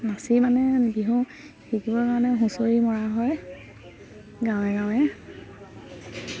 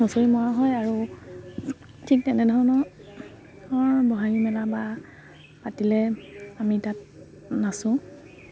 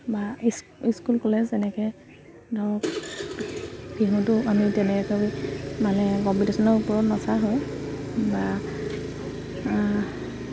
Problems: constant background noise, background conversations at intervals